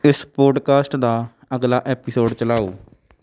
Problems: none marked